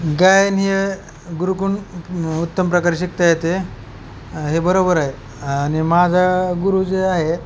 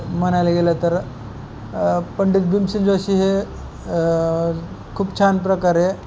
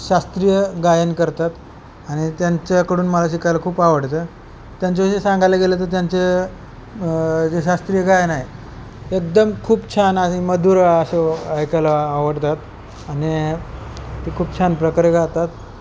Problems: constant background noise